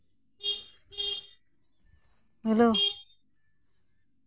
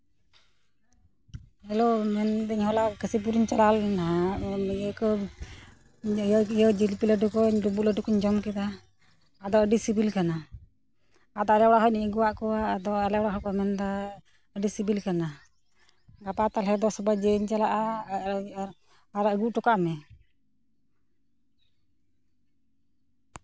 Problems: background sounds at intervals